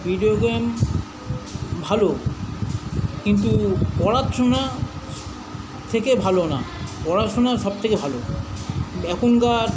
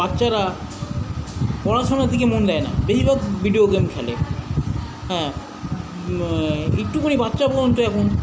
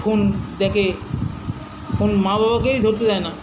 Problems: none marked